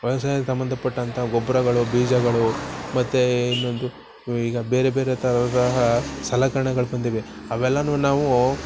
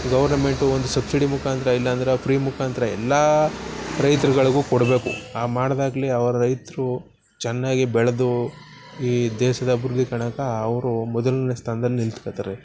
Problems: background sounds at intervals